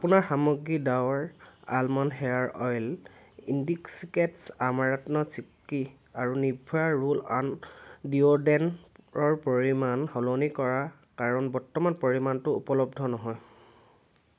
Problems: constant background noise